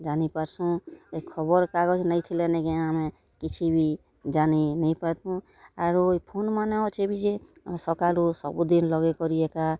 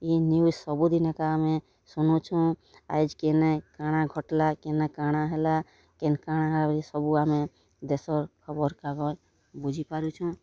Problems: constant background noise